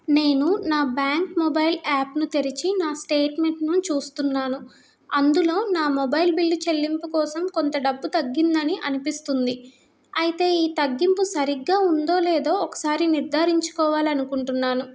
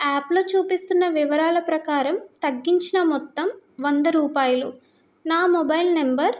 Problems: none marked